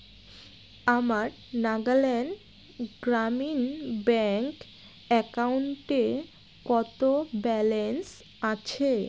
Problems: constant background noise